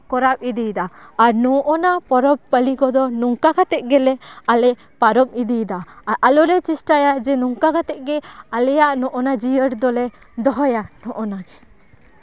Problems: none marked